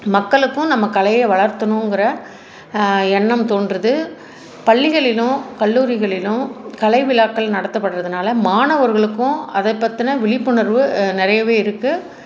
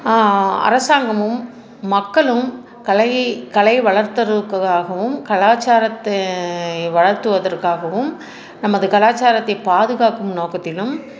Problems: constant background noise